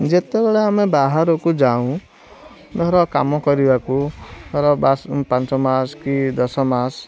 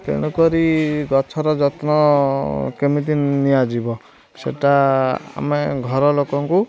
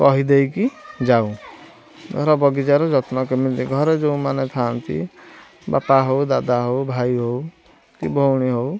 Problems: constant background noise, continuous background conversations